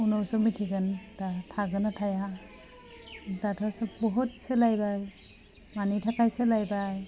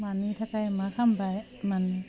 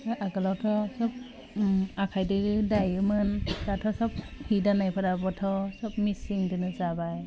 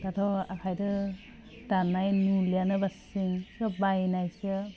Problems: none marked